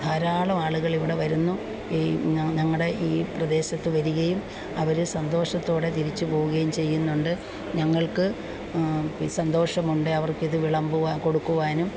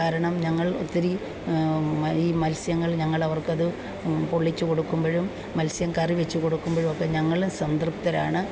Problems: background sounds at intervals, background conversations at intervals